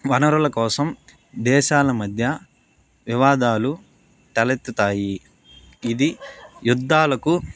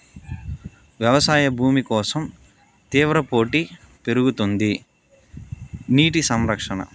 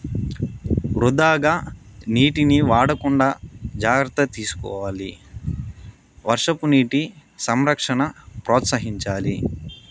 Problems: constant background noise